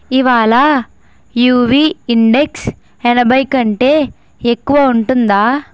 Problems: background sounds at intervals